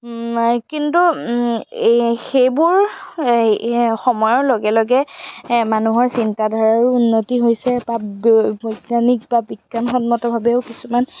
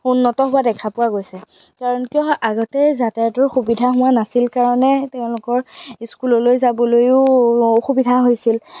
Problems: background sounds at intervals